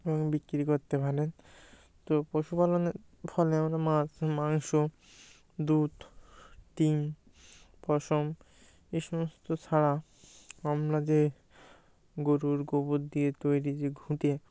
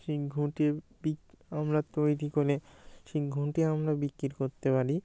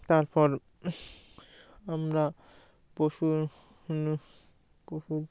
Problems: background sounds at intervals